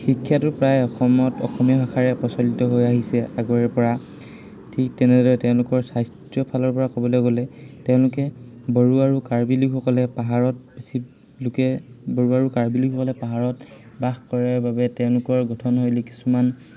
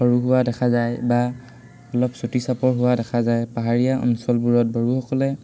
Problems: constant background noise, background conversations at intervals